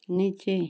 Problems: none marked